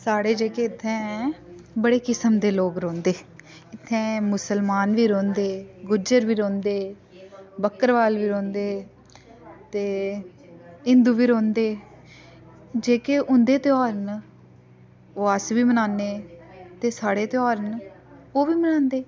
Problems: none marked